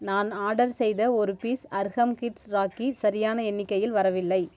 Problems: none marked